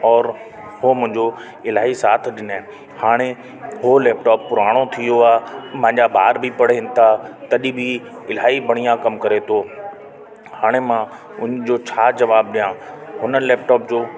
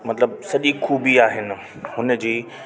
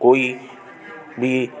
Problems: constant background noise